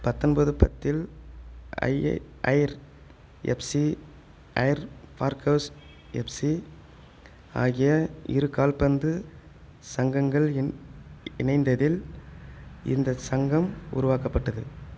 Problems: background sounds at intervals